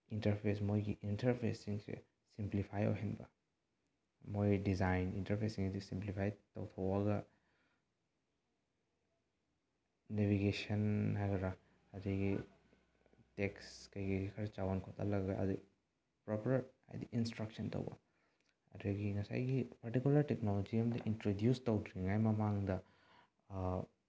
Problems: low volume